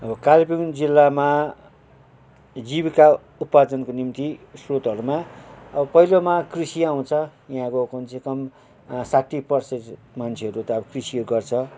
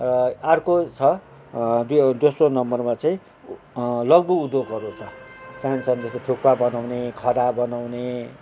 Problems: background sounds at intervals